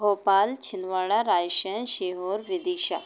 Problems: background sounds at intervals